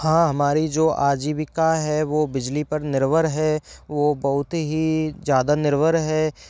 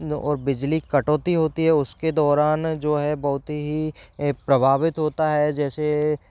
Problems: background sounds at intervals